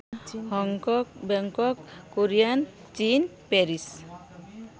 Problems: constant background noise, continuous background conversations